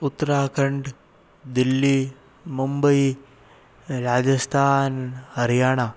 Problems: constant background noise